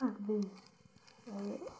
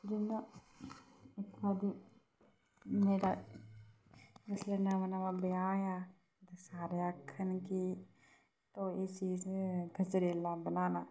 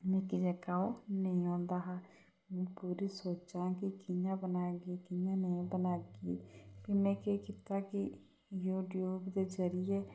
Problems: low volume